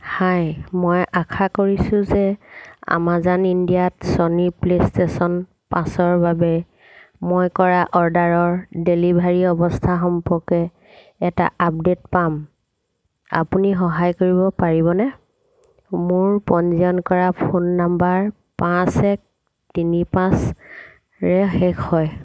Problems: constant background noise